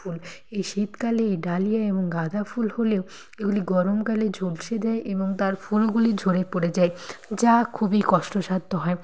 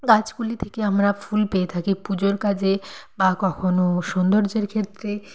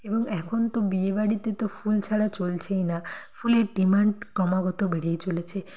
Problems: constant background noise